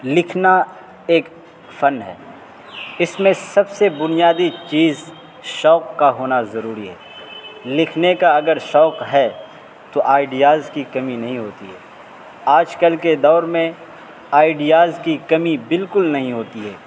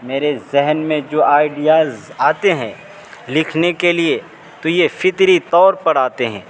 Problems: constant background noise